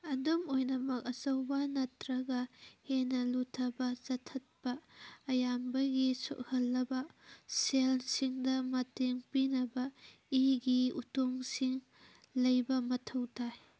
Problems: background sounds at intervals